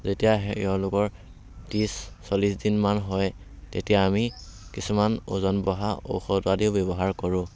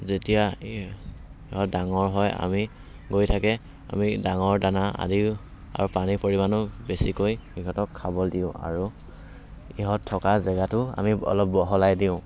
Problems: background sounds at intervals